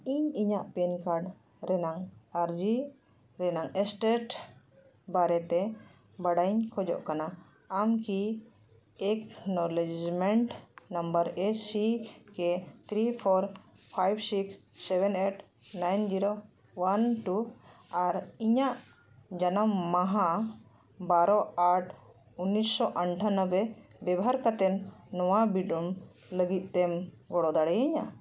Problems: none marked